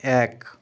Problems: constant background noise, background conversations at intervals